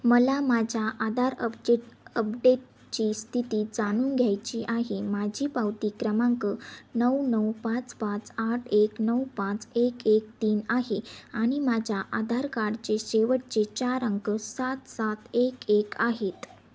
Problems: none marked